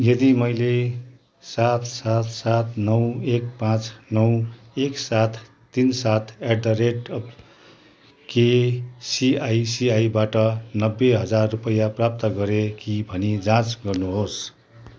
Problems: none marked